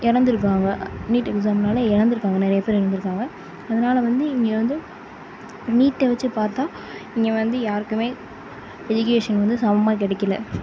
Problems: none marked